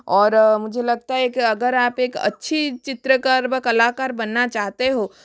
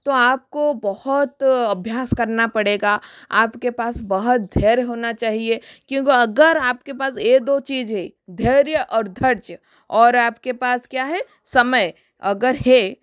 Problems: background sounds at intervals